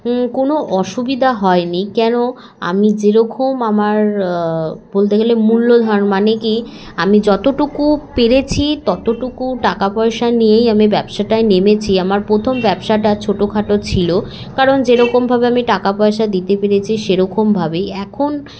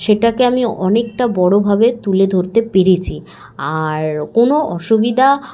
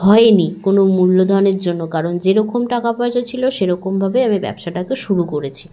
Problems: none marked